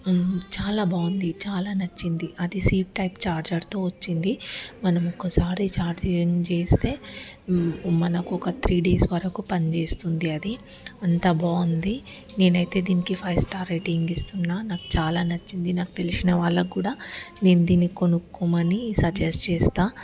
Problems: constant background noise